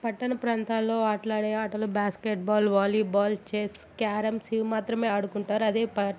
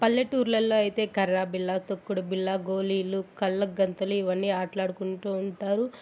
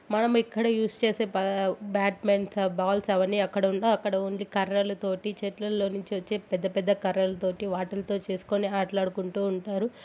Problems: constant background noise